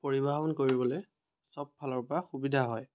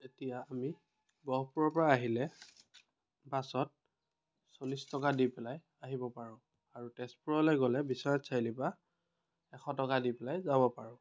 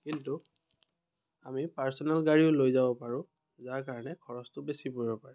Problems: none marked